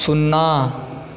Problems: constant background noise